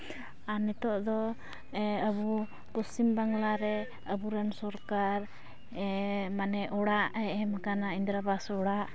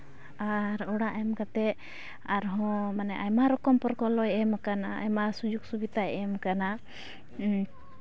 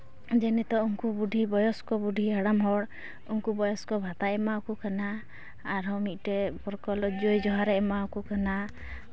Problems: none marked